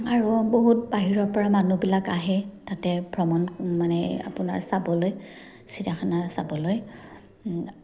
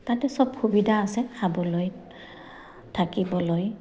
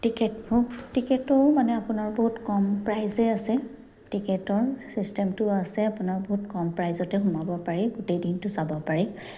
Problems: none marked